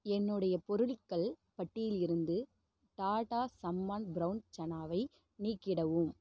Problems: low volume